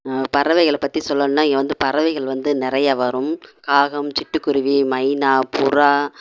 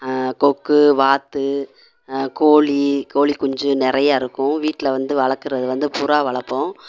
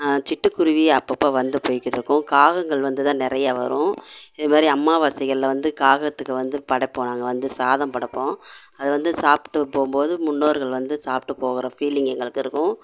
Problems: none marked